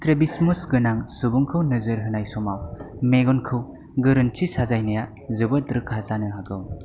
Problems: background sounds at intervals